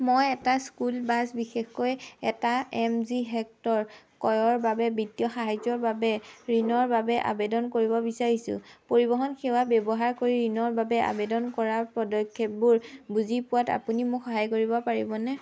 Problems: constant background noise